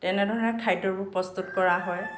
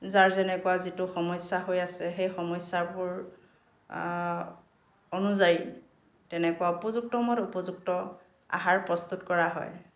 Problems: background sounds at intervals